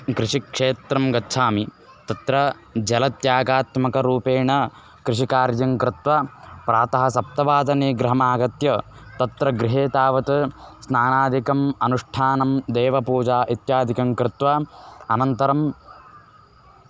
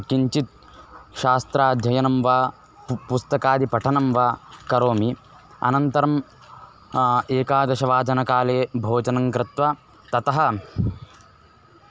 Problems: constant background noise